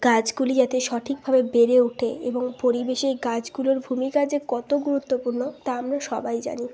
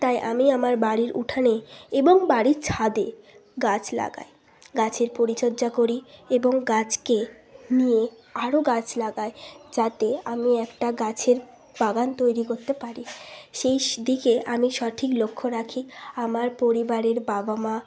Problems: constant background noise